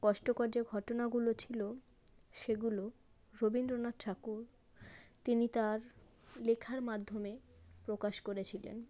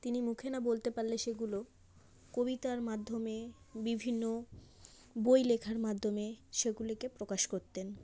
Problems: background sounds at intervals